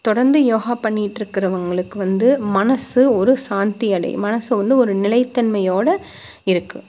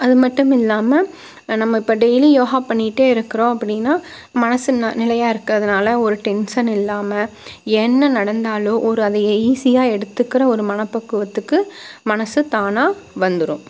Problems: constant background noise